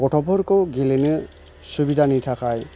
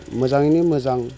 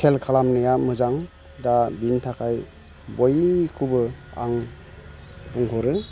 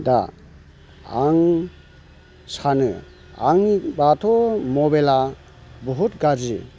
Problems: none marked